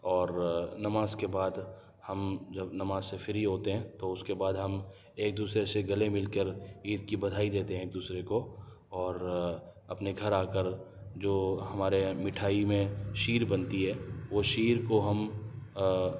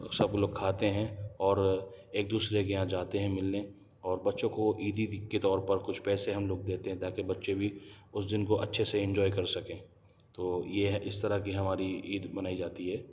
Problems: low volume